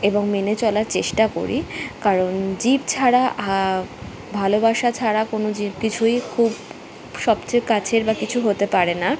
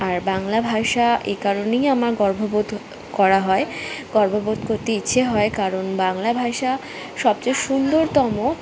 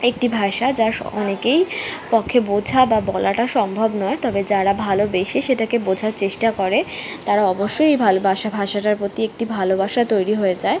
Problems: constant background noise, continuous background conversations